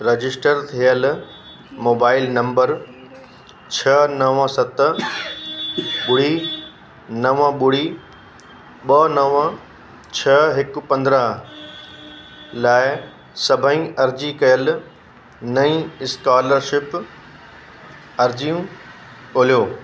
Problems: constant background noise